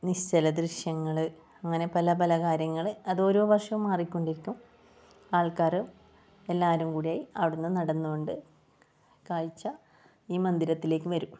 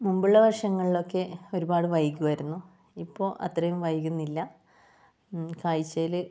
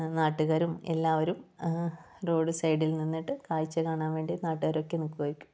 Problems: low volume